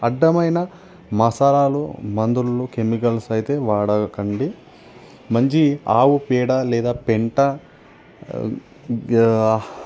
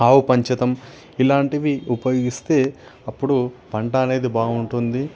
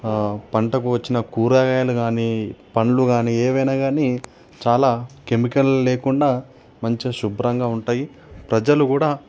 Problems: none marked